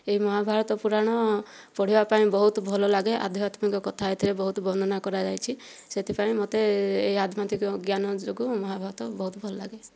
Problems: none marked